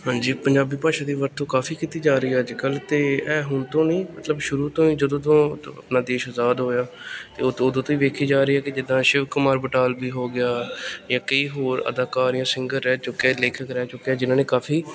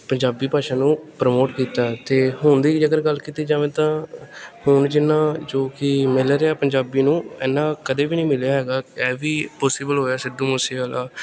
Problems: background sounds at intervals, background conversations at intervals